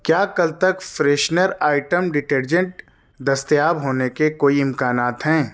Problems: constant background noise